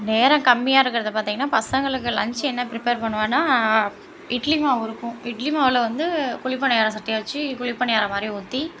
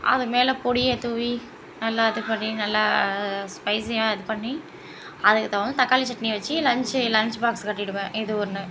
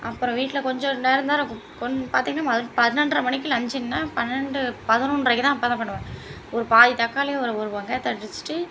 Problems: constant background noise, background conversations at intervals